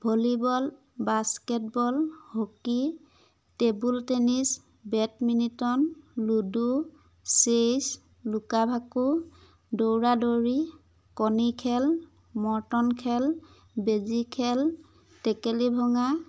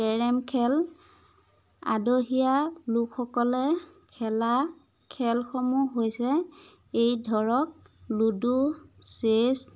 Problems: none marked